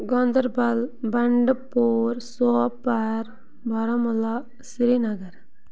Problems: constant background noise